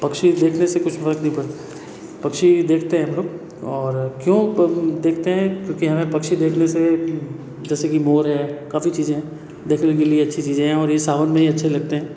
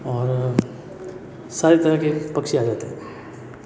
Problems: background sounds at intervals